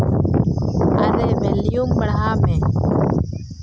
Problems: constant background noise